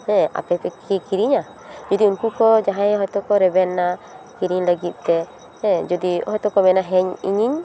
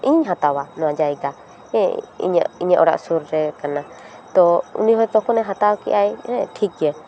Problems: background conversations at intervals